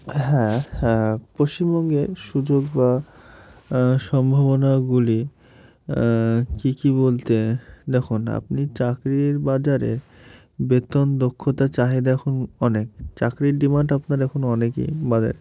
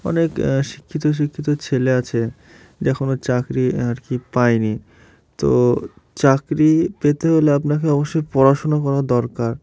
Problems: background sounds at intervals